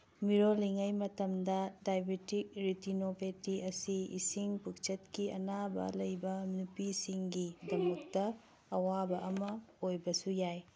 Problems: background conversations at intervals